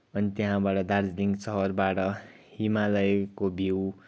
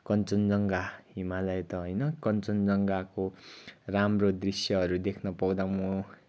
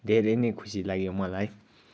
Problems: background sounds at intervals